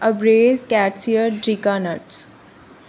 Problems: constant background noise